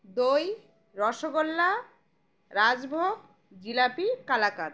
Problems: background sounds at intervals